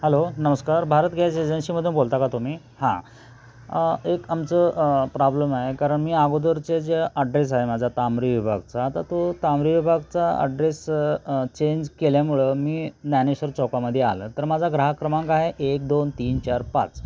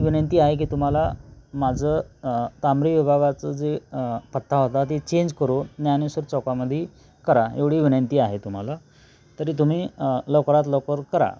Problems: none marked